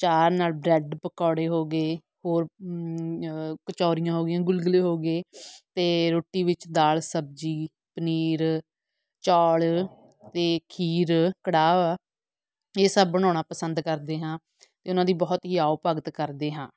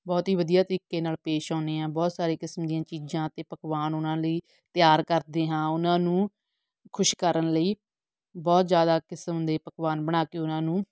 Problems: background sounds at intervals